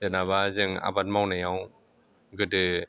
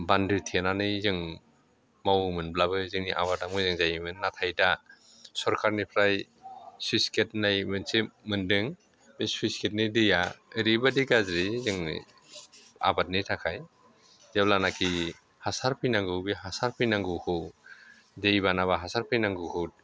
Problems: none marked